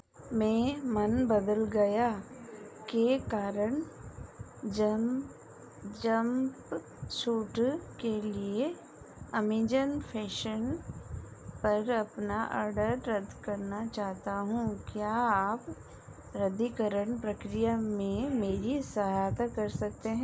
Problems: constant background noise